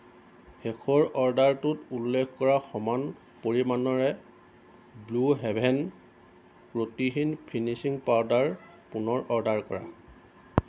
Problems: constant background noise